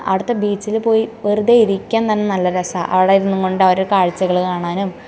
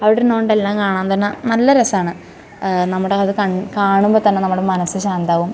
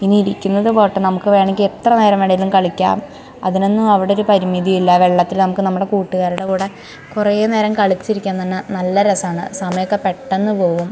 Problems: background sounds at intervals